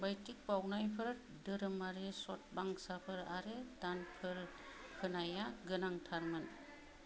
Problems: low volume